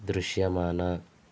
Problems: constant background noise